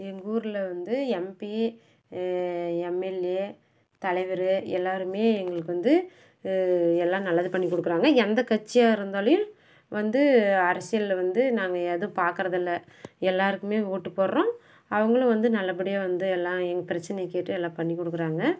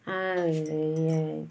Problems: none marked